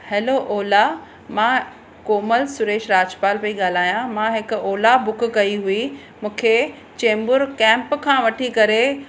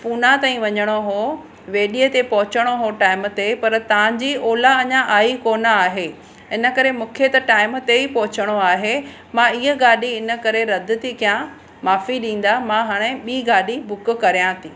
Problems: constant background noise